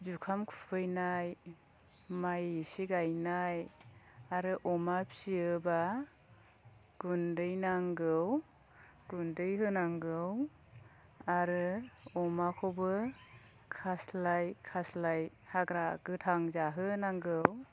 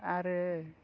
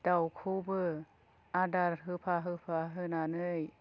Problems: low volume